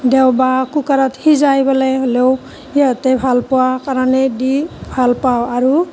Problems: constant background noise